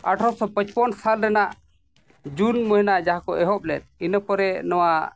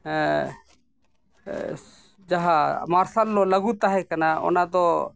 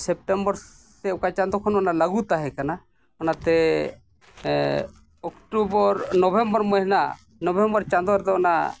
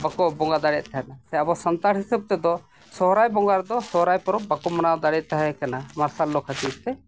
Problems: background sounds at intervals